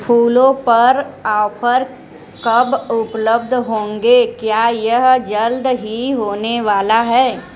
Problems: none marked